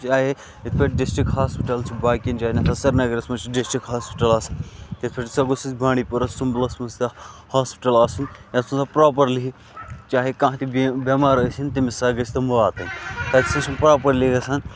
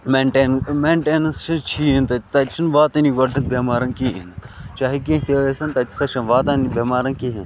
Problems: constant background noise